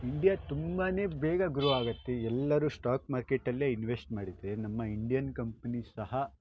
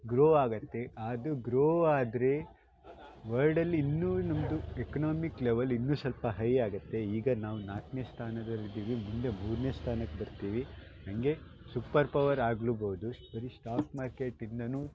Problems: background sounds at intervals